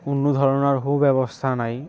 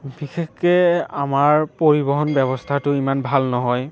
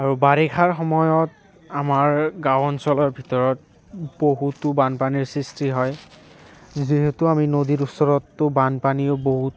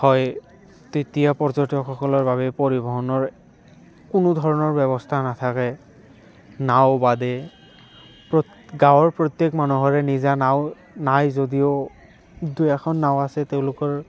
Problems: constant background noise